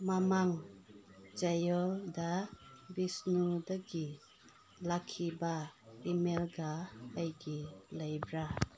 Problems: background conversations at intervals